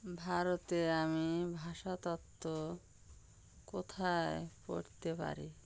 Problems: constant background noise